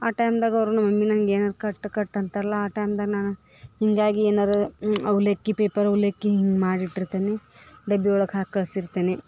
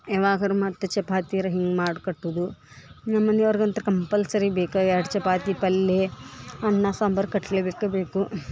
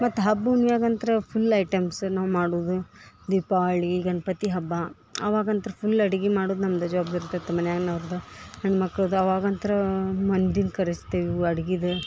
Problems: background sounds at intervals